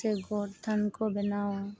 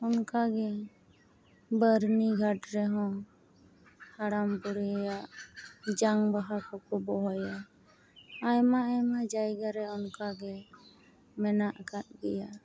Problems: constant background noise